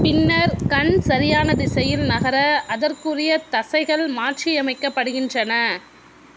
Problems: background sounds at intervals